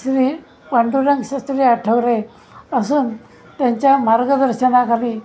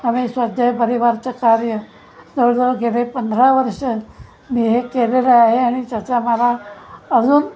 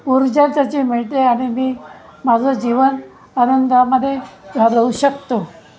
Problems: constant background noise, continuous background conversations